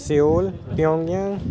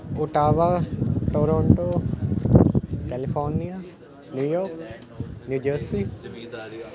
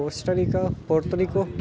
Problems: continuous background conversations